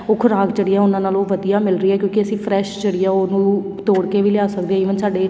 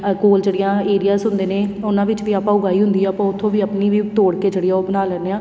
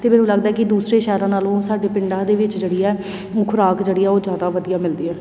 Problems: none marked